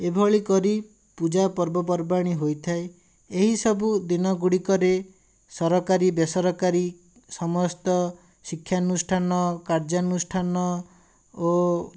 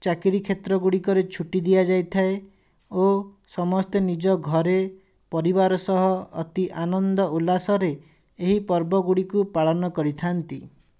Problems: none marked